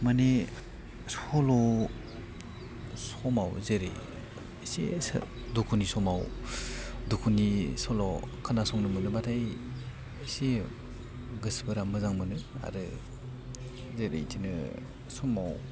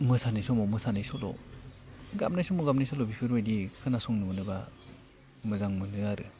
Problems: none marked